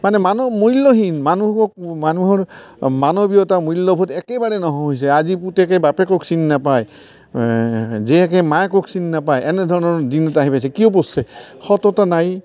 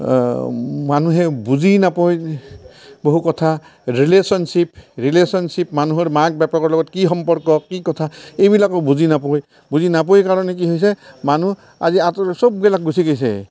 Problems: none marked